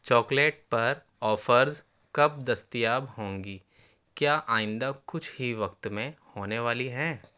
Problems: constant background noise